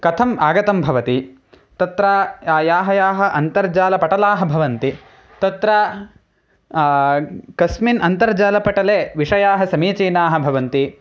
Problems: none marked